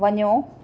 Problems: none marked